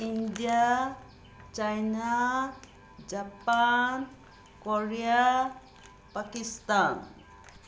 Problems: constant background noise